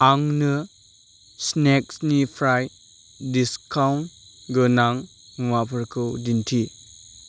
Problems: none marked